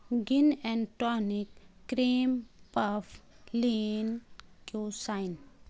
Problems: constant background noise